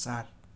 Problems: none marked